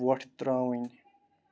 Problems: constant background noise, low volume